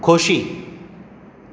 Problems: none marked